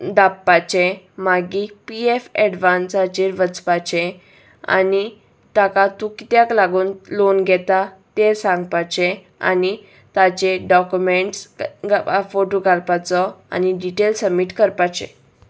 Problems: none marked